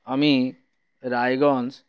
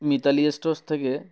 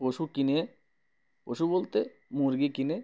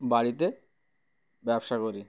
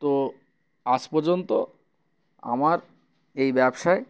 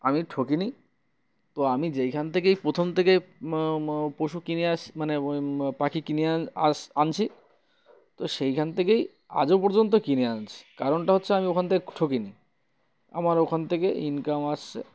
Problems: background sounds at intervals